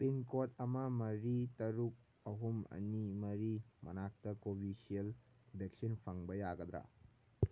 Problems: none marked